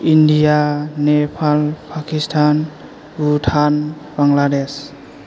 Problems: none marked